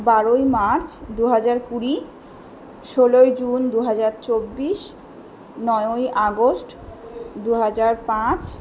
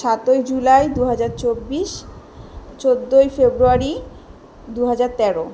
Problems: none marked